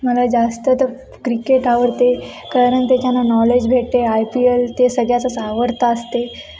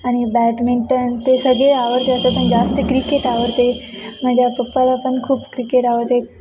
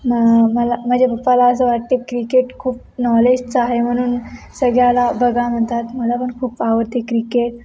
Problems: none marked